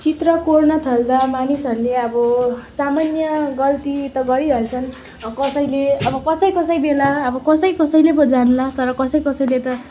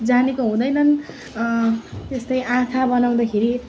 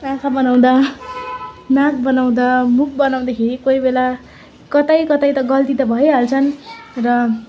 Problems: constant background noise, continuous background conversations